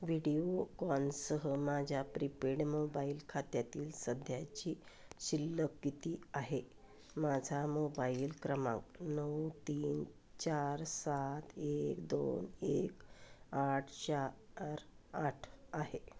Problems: none marked